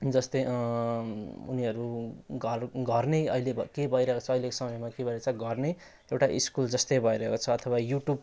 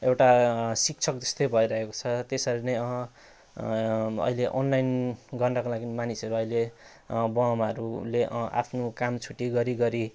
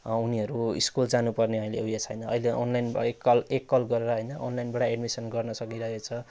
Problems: none marked